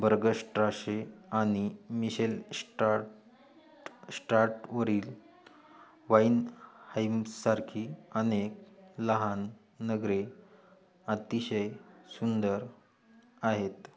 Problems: background sounds at intervals, background conversations at intervals